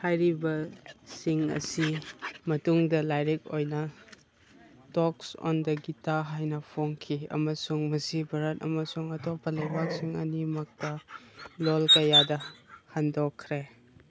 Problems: background sounds at intervals